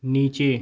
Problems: background sounds at intervals